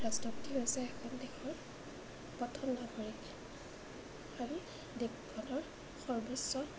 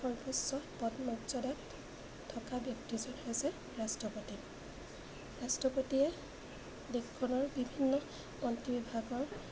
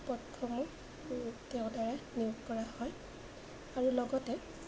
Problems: constant background noise